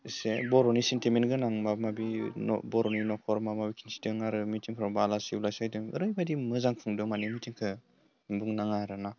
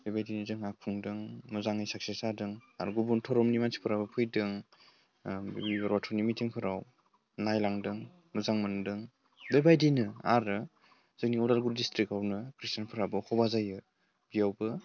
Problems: low volume